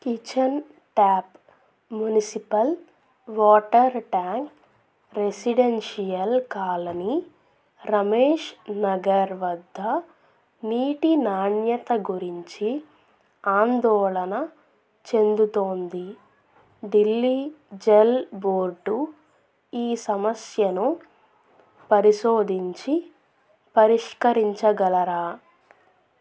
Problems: none marked